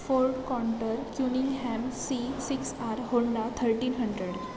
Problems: constant background noise, background conversations at intervals